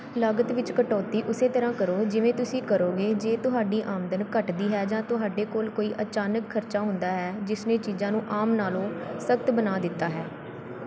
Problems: none marked